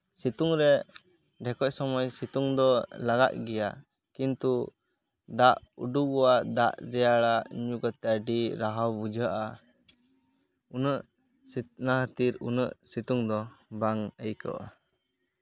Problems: constant background noise, continuous background conversations